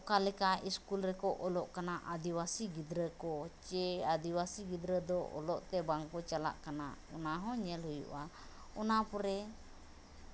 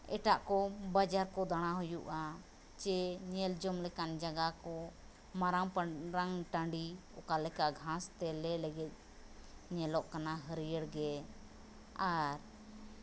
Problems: none marked